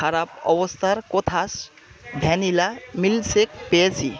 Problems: constant background noise